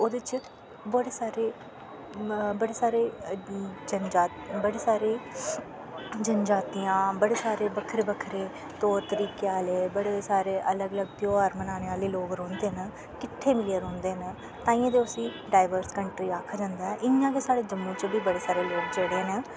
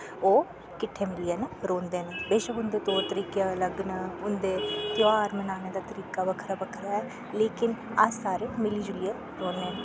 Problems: constant background noise